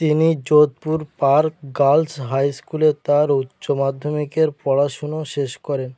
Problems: background sounds at intervals